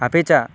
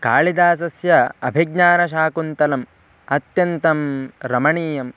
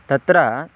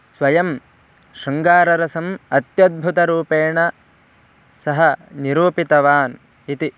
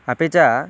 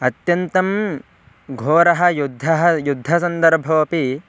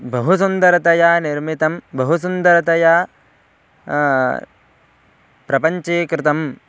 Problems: constant background noise